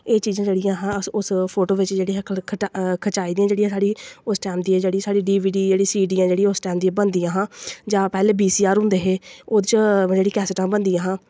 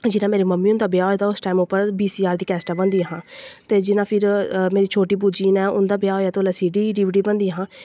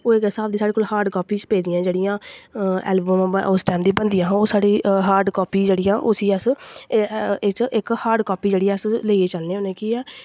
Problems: none marked